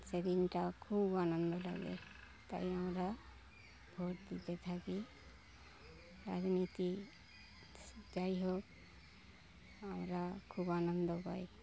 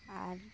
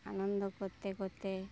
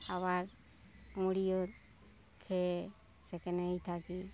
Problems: none marked